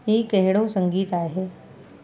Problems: constant background noise